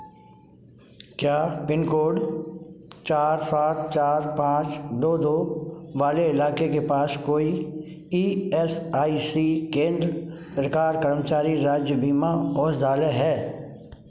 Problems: background sounds at intervals, echo